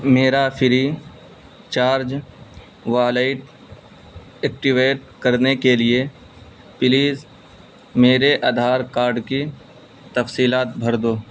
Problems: constant background noise